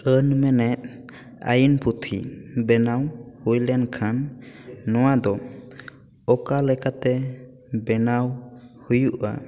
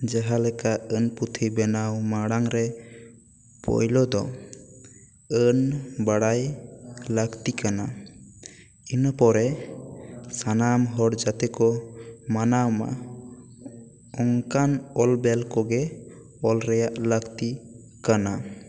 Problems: continuous background conversations